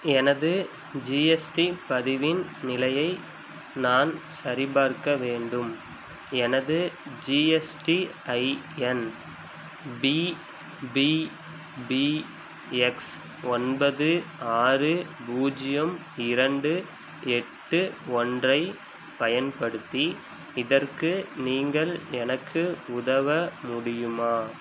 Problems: none marked